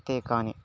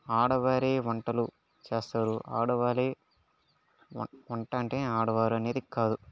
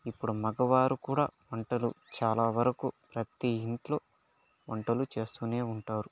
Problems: low volume